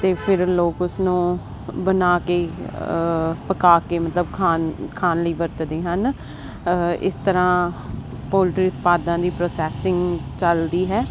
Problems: constant background noise